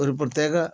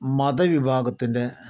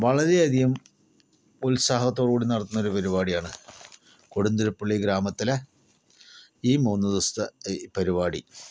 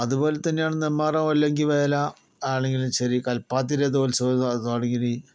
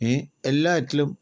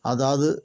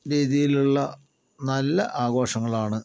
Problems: none marked